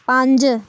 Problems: background sounds at intervals